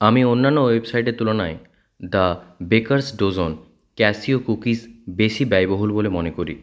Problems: none marked